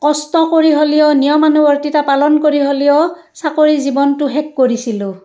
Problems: none marked